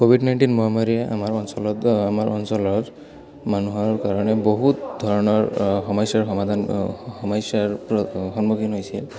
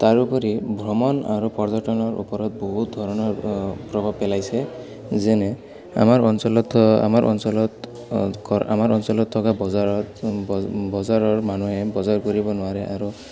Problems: background sounds at intervals, background conversations at intervals